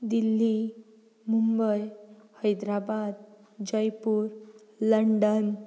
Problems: background sounds at intervals